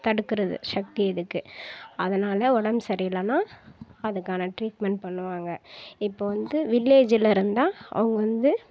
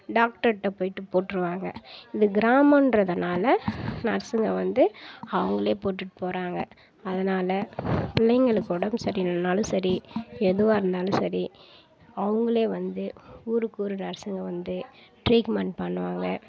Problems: background sounds at intervals